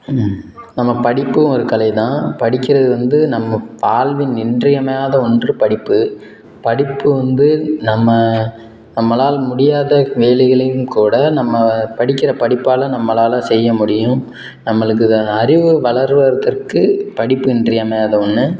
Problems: background sounds at intervals